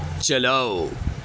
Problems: none marked